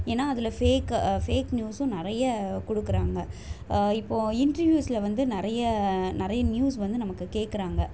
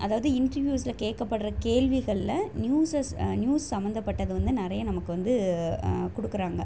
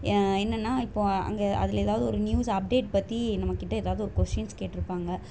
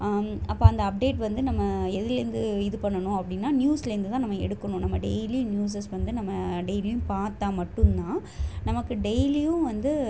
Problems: constant background noise